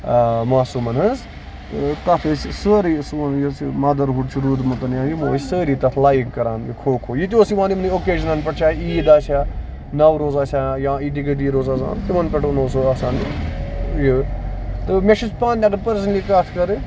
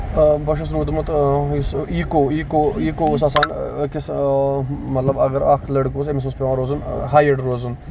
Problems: constant background noise, background conversations at intervals